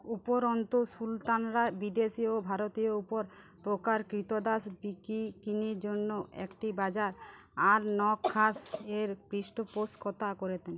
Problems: none marked